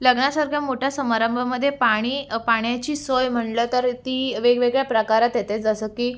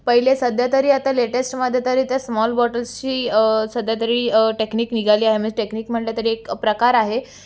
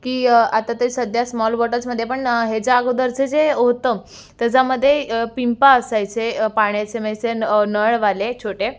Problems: none marked